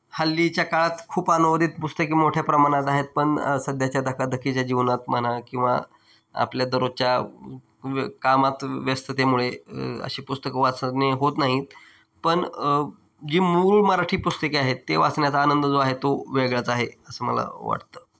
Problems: background sounds at intervals